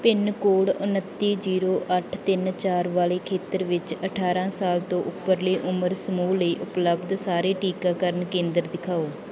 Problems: background sounds at intervals